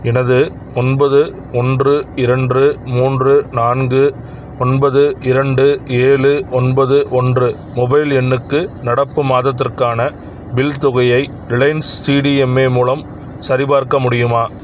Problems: none marked